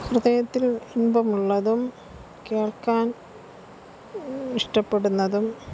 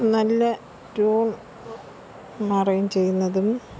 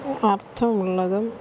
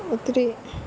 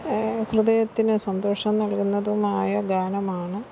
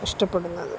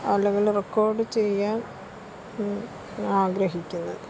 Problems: constant background noise